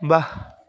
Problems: background sounds at intervals